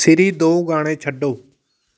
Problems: none marked